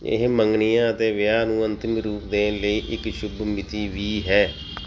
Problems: background sounds at intervals